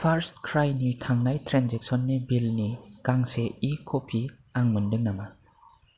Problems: none marked